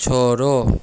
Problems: none marked